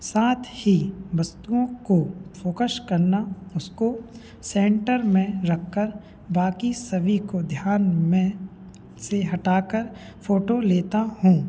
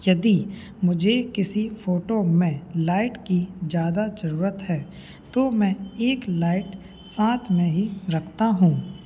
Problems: background sounds at intervals, background conversations at intervals